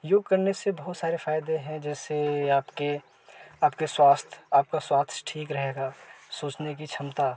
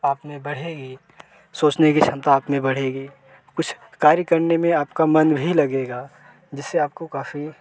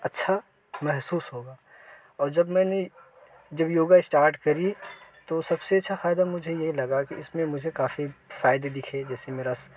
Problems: none marked